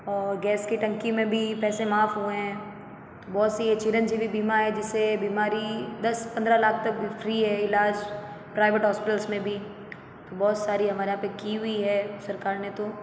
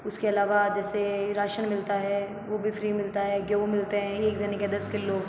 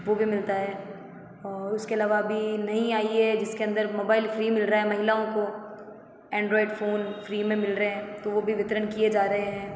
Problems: none marked